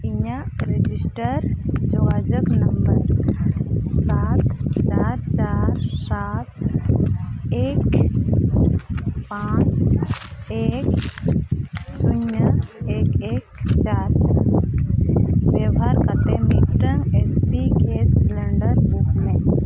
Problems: constant background noise